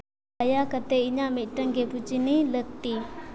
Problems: background sounds at intervals, low volume